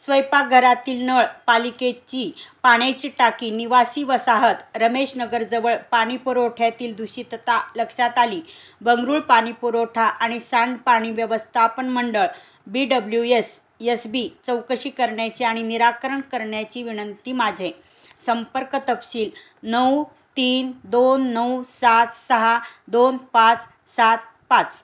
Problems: none marked